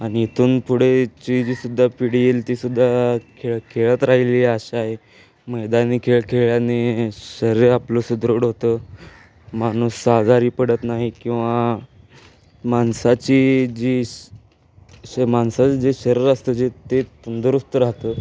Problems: none marked